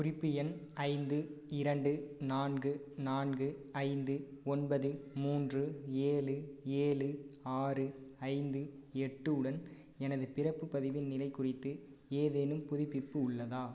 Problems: low volume